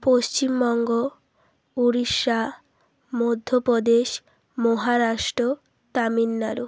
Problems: constant background noise